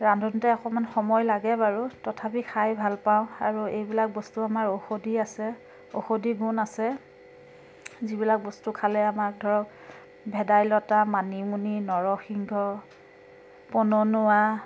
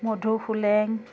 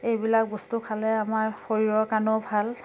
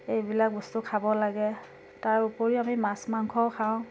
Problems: constant background noise